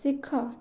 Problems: low volume